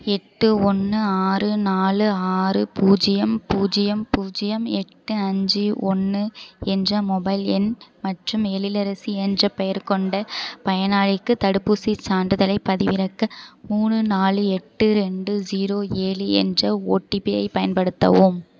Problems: constant background noise